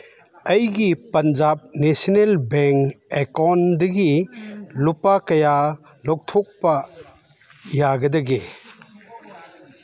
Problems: background sounds at intervals